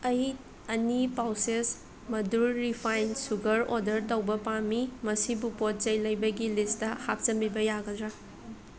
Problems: constant background noise, continuous background conversations